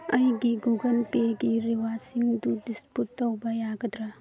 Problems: none marked